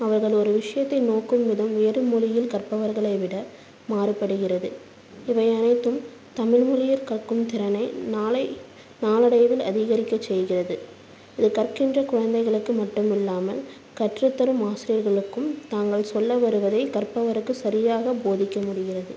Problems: constant background noise